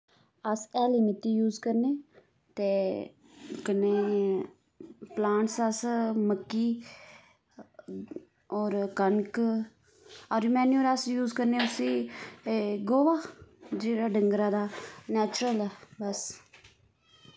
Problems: background sounds at intervals